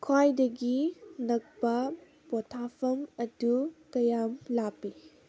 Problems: none marked